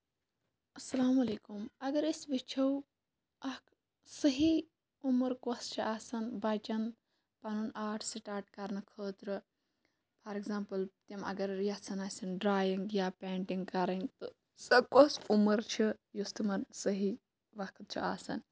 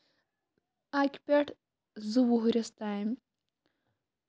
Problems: low volume